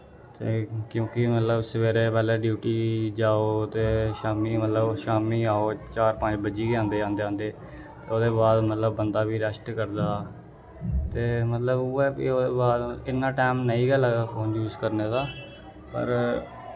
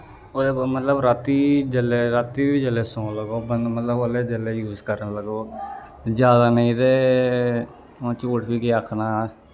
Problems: none marked